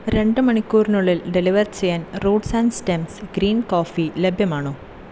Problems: constant background noise